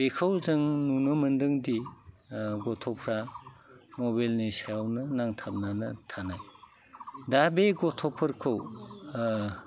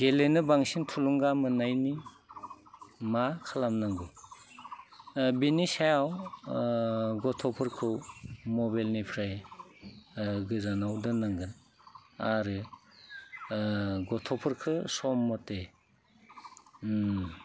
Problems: constant background noise